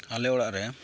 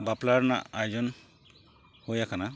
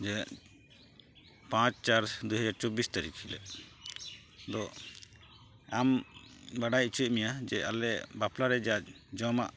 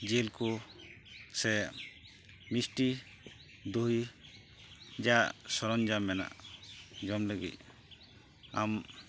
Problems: constant background noise